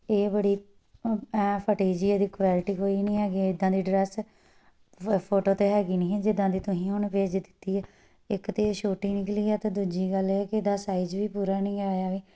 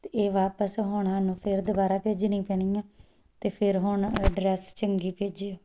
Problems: background sounds at intervals